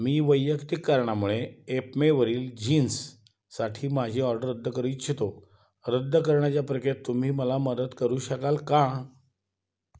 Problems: background sounds at intervals